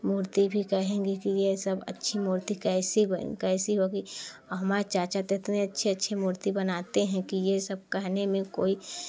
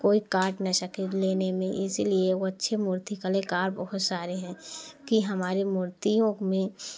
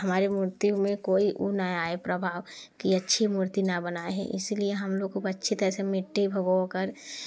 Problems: constant background noise